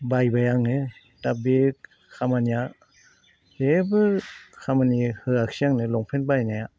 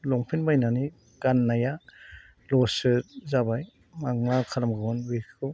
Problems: constant background noise